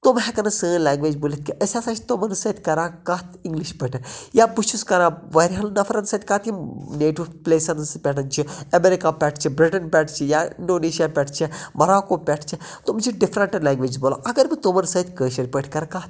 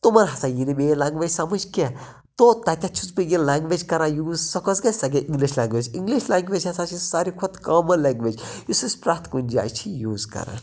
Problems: constant background noise